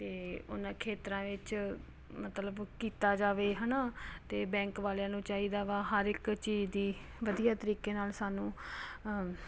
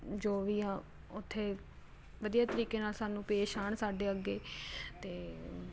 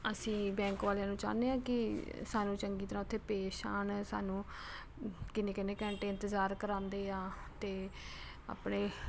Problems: constant background noise